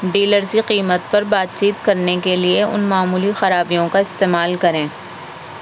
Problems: constant background noise